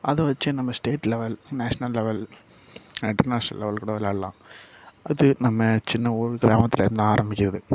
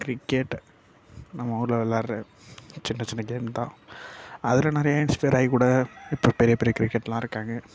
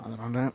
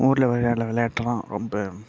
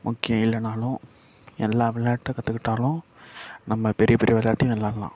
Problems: low volume